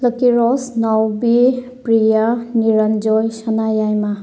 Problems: background sounds at intervals